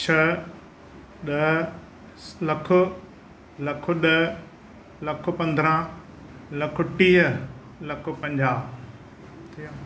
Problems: none marked